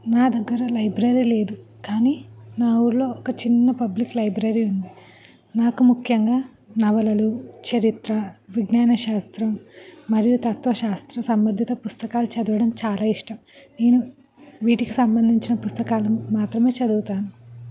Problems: none marked